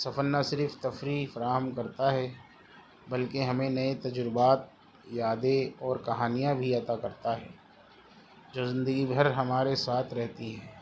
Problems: constant background noise